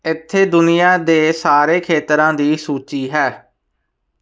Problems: constant background noise